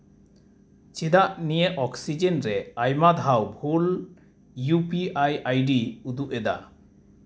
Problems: none marked